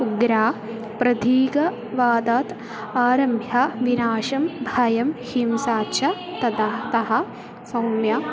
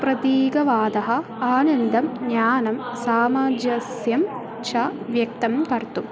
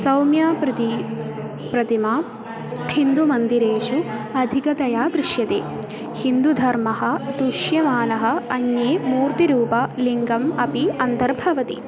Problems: constant background noise, continuous background conversations